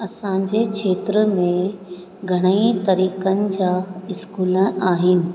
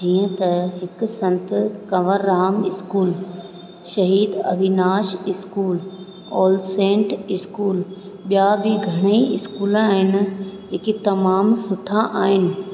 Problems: constant background noise, echo